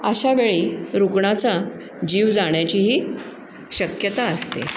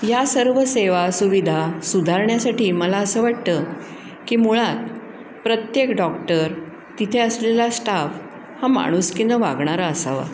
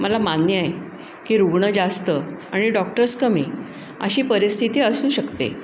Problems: constant background noise